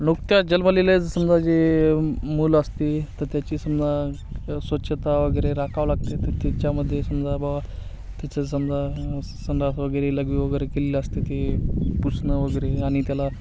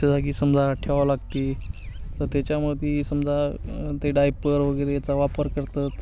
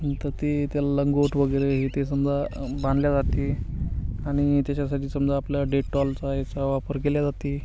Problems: constant background noise, background conversations at intervals